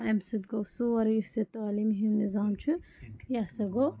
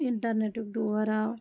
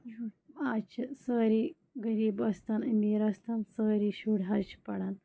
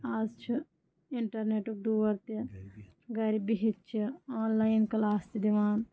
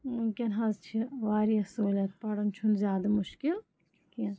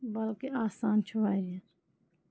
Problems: background sounds at intervals, low volume